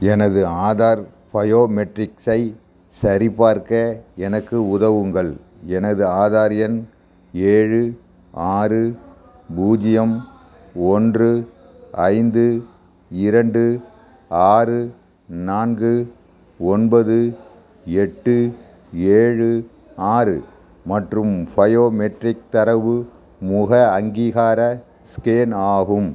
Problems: background sounds at intervals